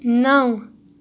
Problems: background sounds at intervals